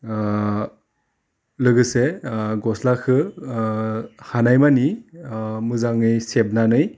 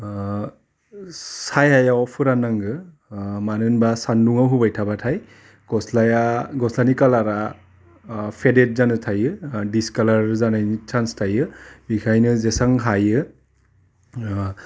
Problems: none marked